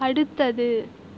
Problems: constant background noise